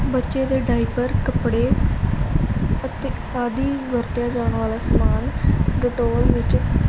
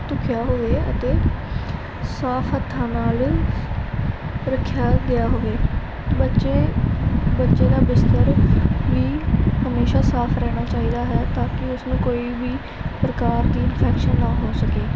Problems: constant background noise